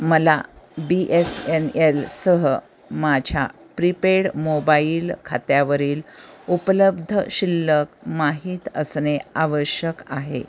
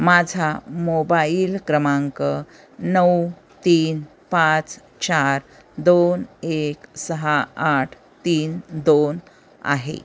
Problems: constant background noise, continuous background conversations